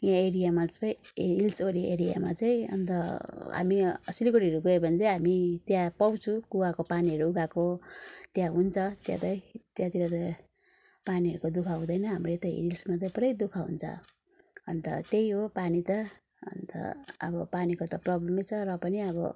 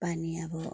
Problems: background sounds at intervals